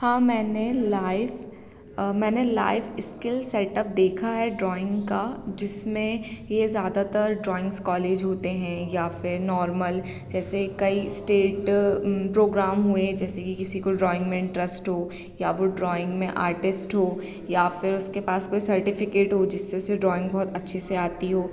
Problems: none marked